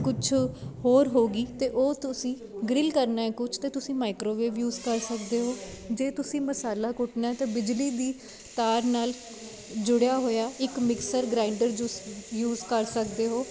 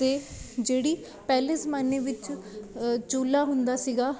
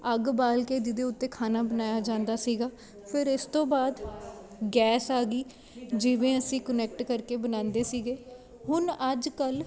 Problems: constant background noise, background conversations at intervals